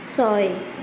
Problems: constant background noise